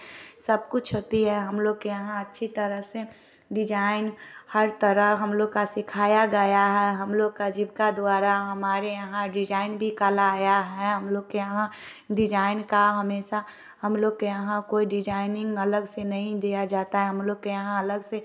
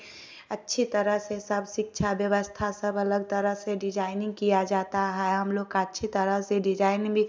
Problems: none marked